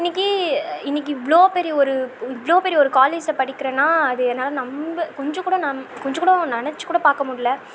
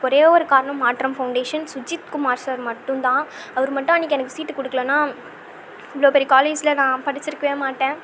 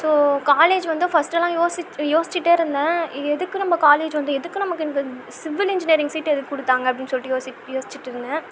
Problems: constant background noise